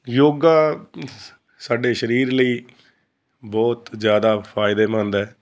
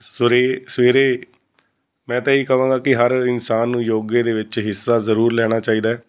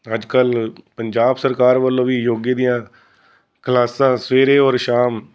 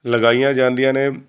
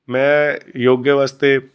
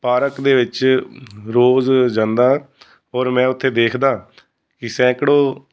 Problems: constant background noise